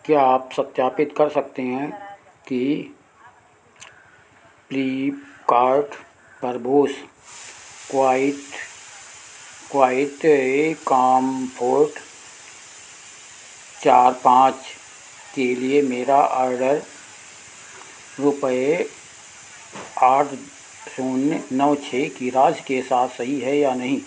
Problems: constant background noise, echo